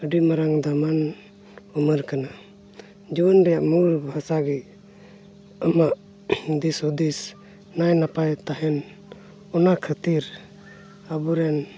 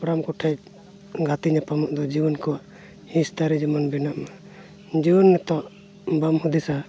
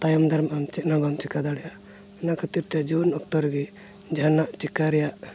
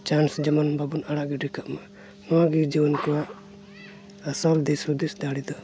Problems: constant background noise